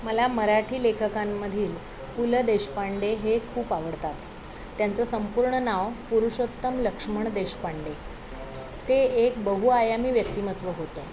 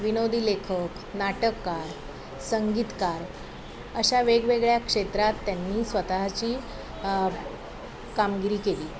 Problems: constant background noise, continuous background conversations